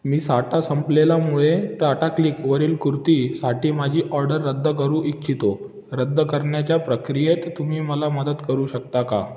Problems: none marked